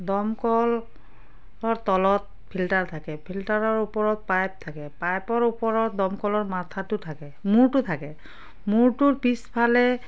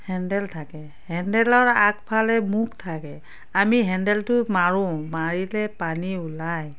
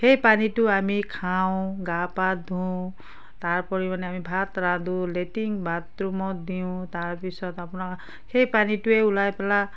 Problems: constant background noise